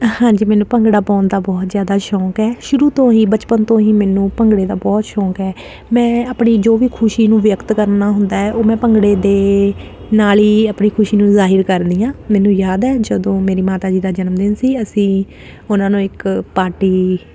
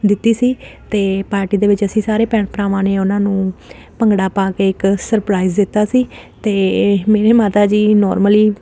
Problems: none marked